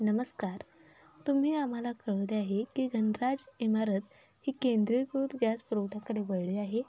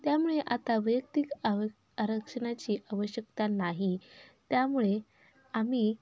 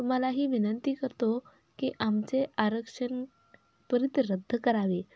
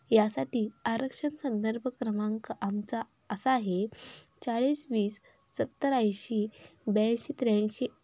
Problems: none marked